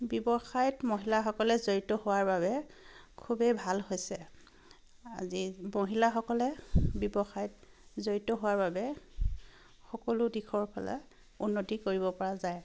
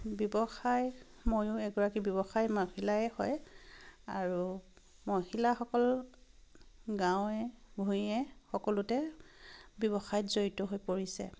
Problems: constant background noise